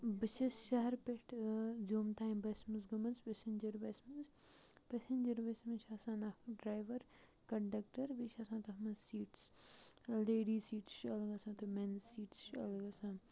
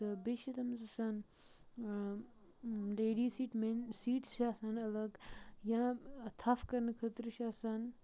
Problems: background sounds at intervals, low volume